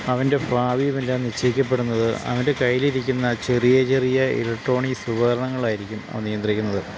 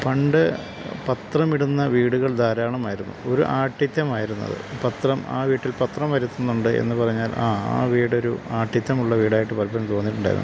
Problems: constant background noise